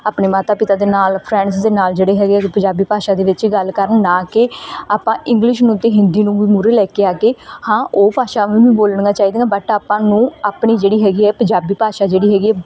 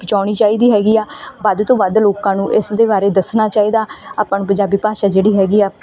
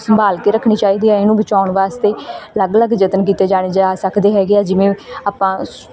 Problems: none marked